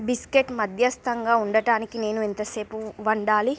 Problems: background sounds at intervals